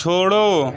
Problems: constant background noise, background conversations at intervals